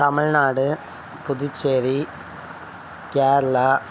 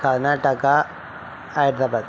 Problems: background conversations at intervals